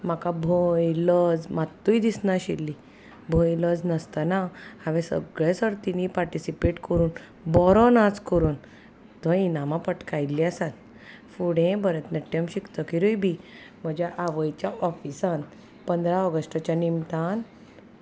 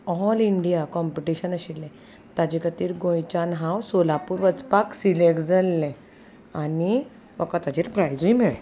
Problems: none marked